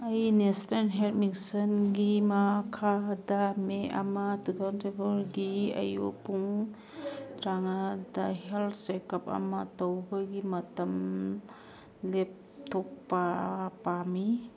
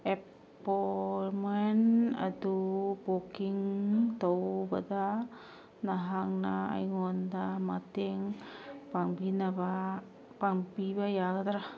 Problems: background sounds at intervals, background conversations at intervals